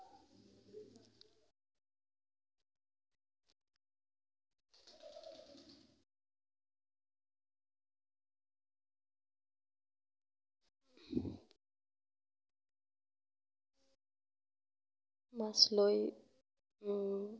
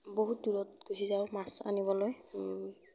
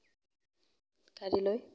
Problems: background sounds at intervals, low volume